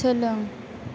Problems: none marked